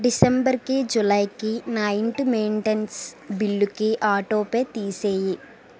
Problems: constant background noise